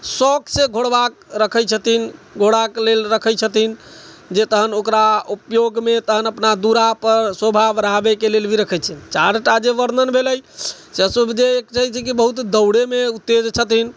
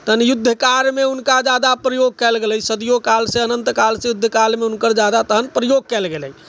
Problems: none marked